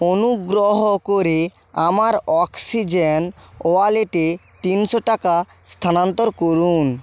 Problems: none marked